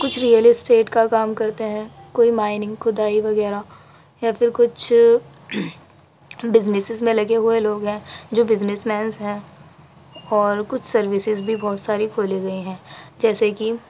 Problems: constant background noise, background conversations at intervals